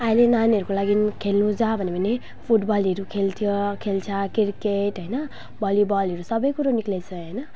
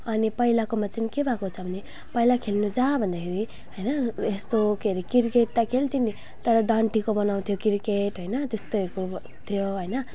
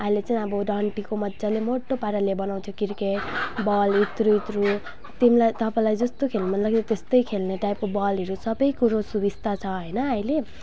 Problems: none marked